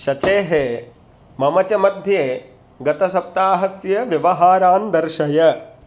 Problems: none marked